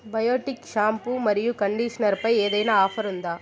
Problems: background sounds at intervals, background conversations at intervals